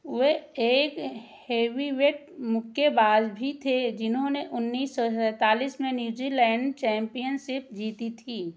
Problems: constant background noise